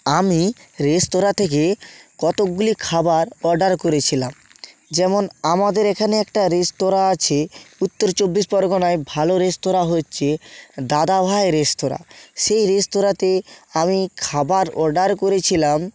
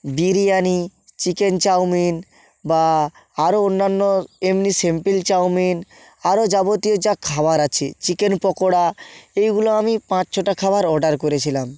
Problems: constant background noise